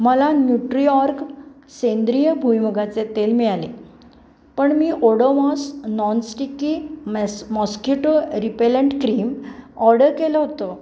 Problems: background sounds at intervals